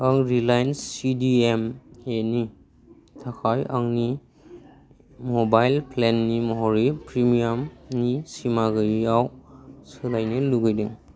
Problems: constant background noise